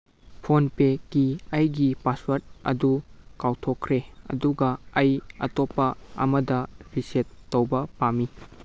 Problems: none marked